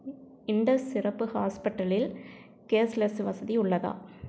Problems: none marked